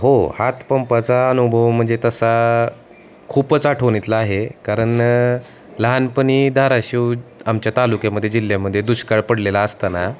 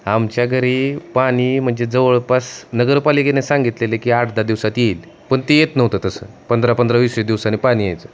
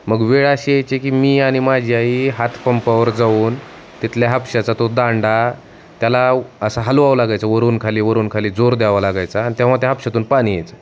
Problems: constant background noise